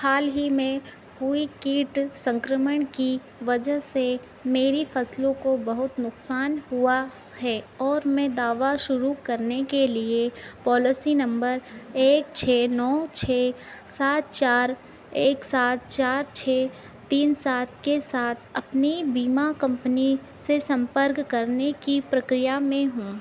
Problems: background sounds at intervals